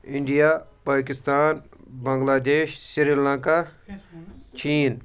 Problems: background sounds at intervals